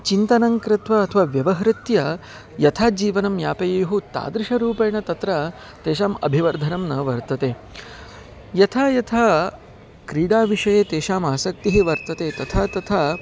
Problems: none marked